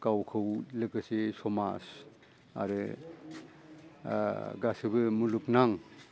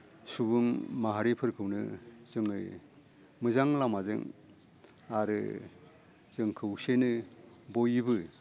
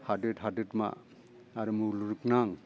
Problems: low volume